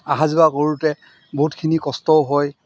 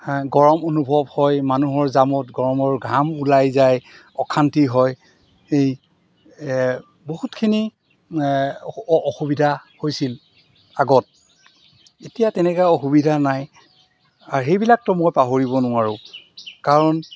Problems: background sounds at intervals